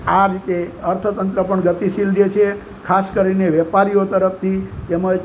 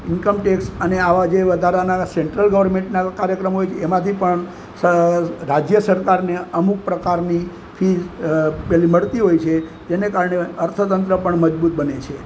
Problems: constant background noise